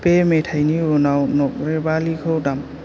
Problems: constant background noise